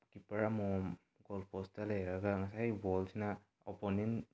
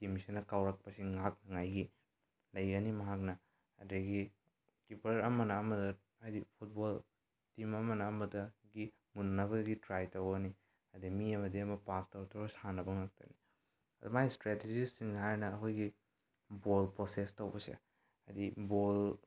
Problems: low volume